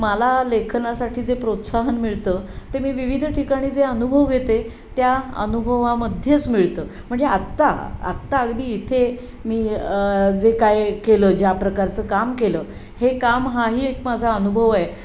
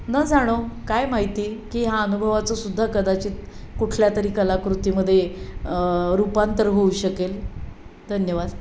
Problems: none marked